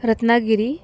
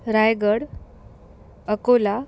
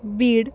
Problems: none marked